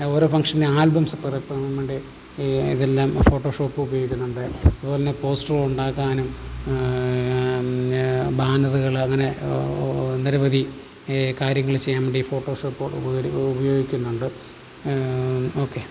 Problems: background sounds at intervals, low volume